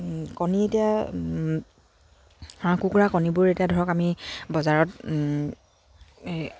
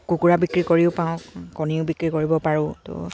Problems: none marked